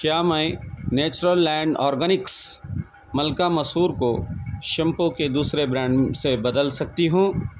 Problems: none marked